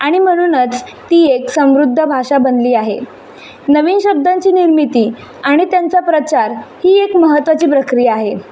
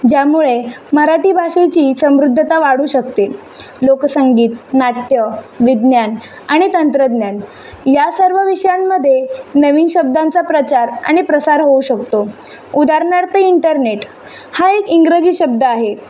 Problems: none marked